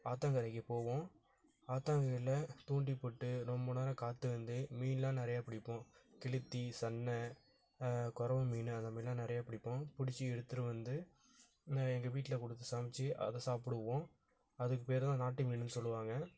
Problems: background sounds at intervals